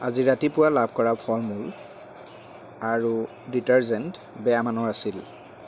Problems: constant background noise